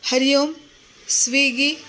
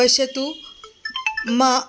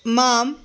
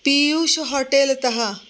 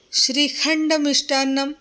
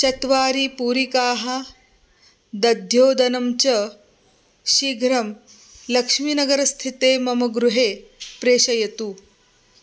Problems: background sounds at intervals